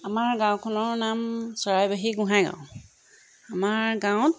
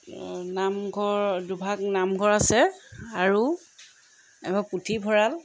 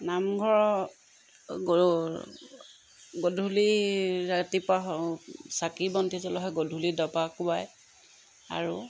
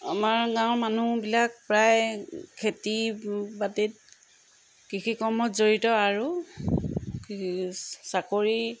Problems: background sounds at intervals